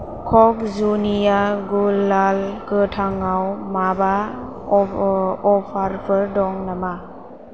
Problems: constant background noise